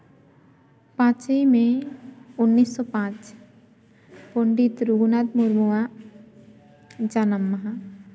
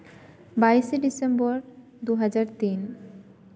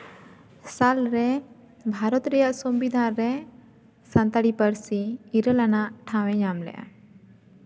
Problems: none marked